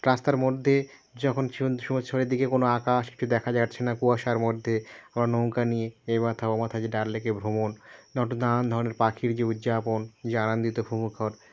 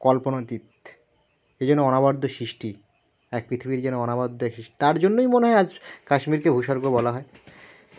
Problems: background sounds at intervals